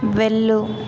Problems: constant background noise